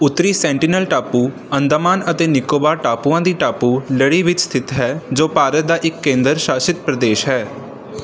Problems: background sounds at intervals